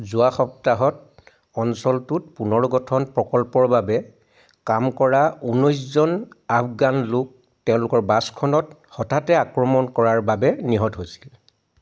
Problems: background sounds at intervals